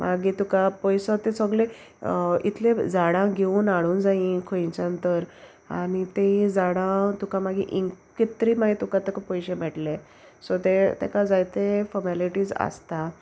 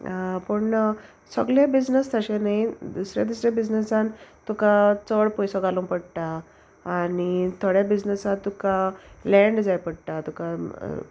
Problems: constant background noise